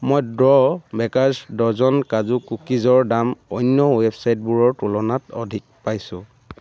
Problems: constant background noise